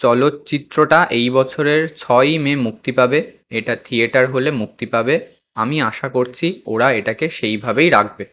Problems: none marked